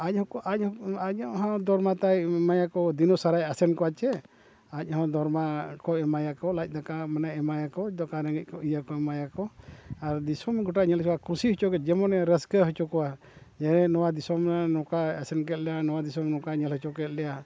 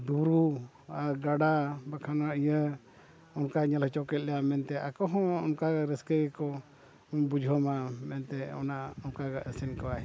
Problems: background sounds at intervals